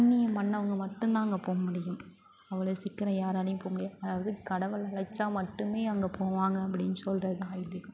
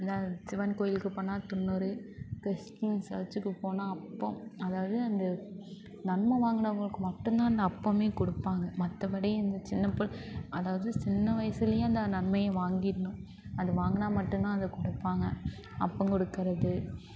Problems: constant background noise, continuous background conversations